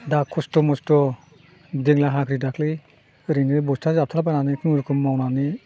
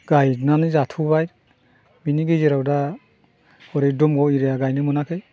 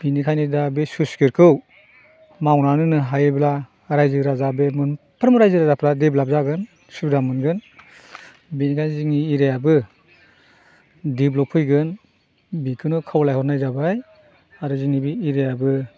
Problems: constant background noise